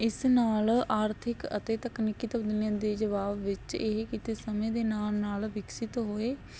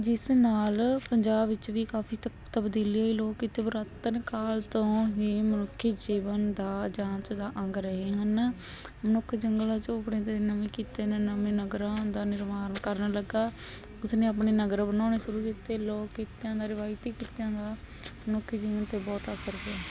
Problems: none marked